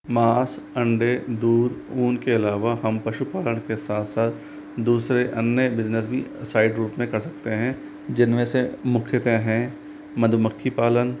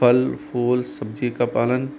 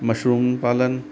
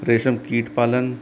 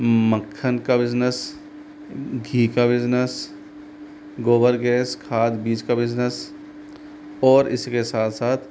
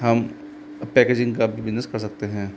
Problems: constant background noise